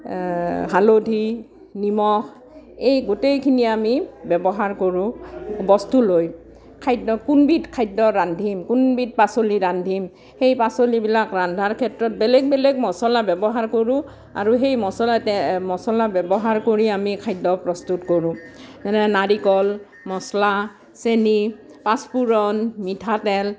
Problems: none marked